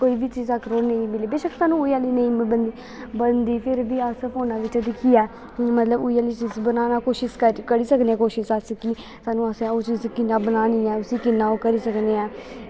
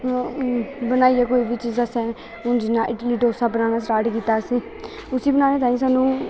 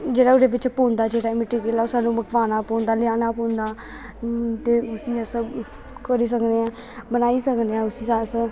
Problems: constant background noise